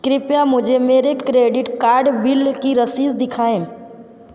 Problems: background sounds at intervals